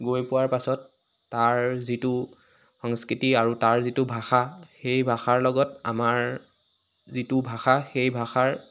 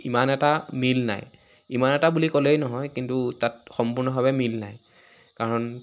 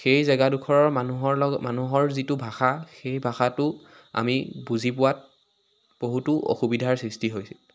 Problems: background sounds at intervals